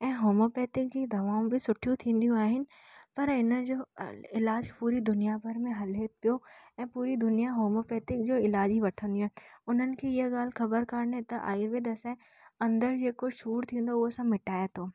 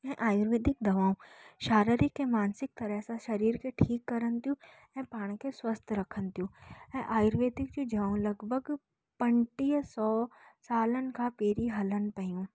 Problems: none marked